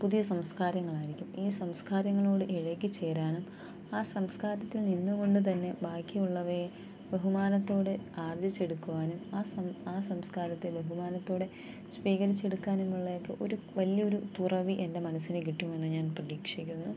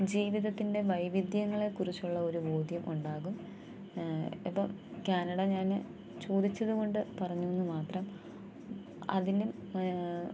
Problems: low volume